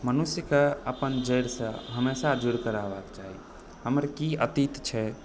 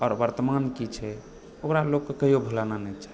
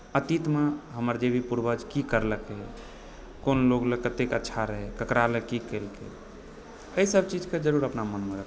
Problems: background sounds at intervals